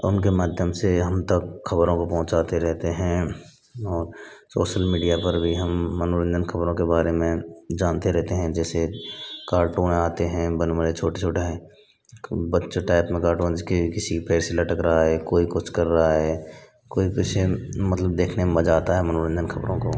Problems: none marked